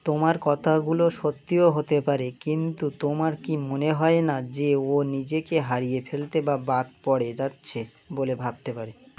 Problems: constant background noise